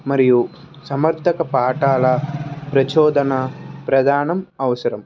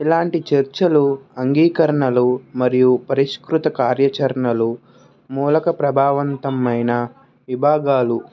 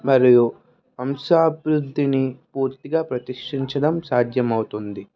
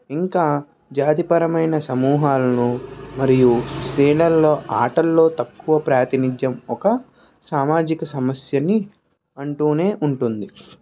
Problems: background sounds at intervals, background conversations at intervals